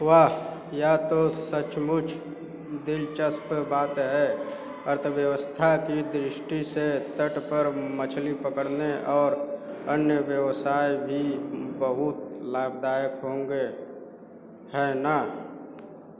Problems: constant background noise